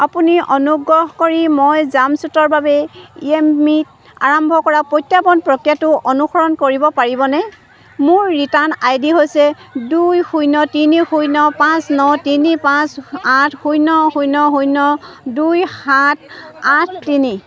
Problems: none marked